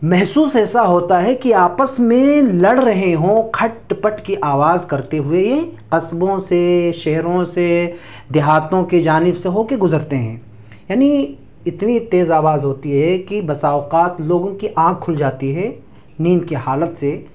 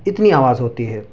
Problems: none marked